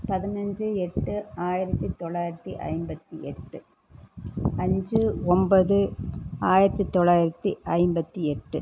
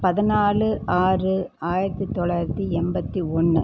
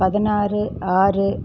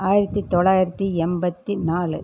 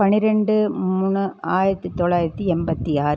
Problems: none marked